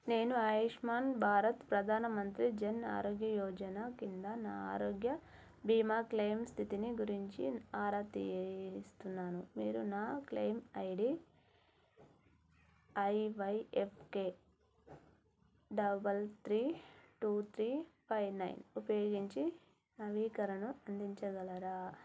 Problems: none marked